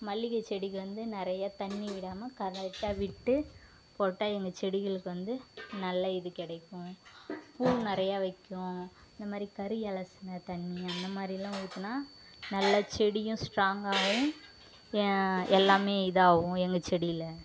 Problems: constant background noise